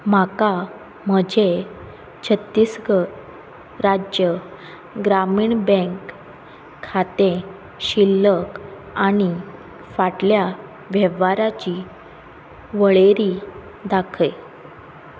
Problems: constant background noise